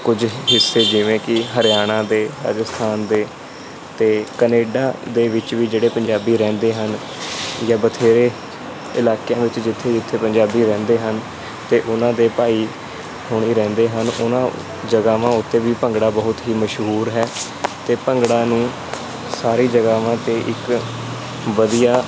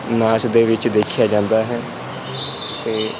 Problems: constant background noise